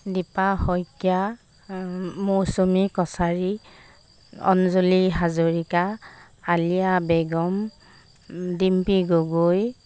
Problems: constant background noise